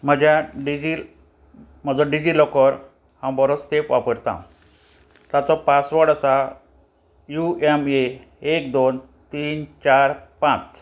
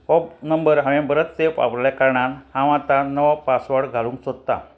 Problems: constant background noise